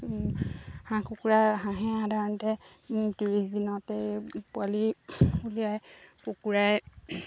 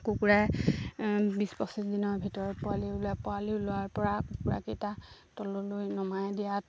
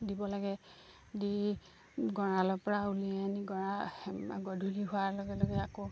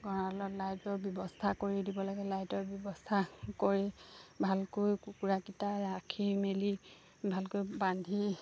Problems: low volume